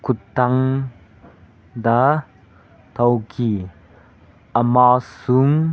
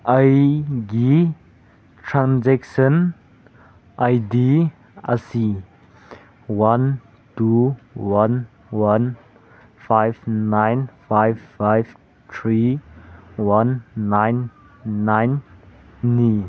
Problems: background sounds at intervals